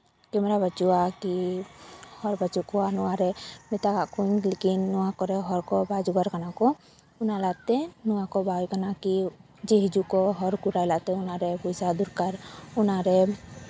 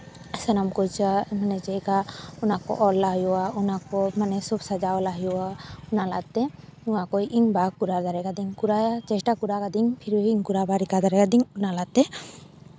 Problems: background sounds at intervals